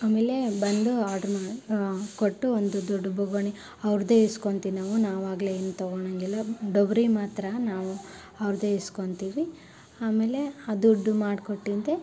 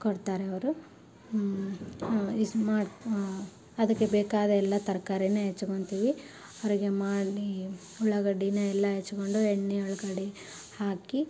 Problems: none marked